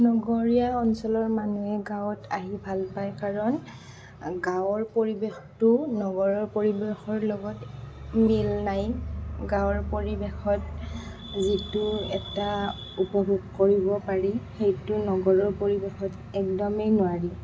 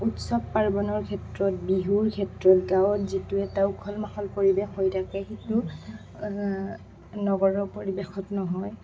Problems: constant background noise